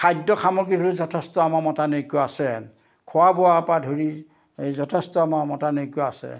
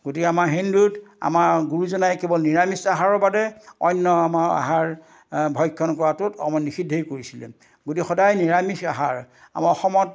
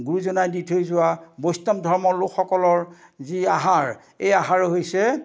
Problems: none marked